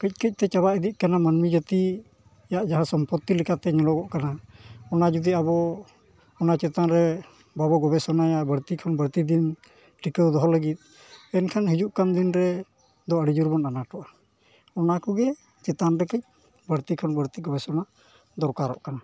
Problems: background sounds at intervals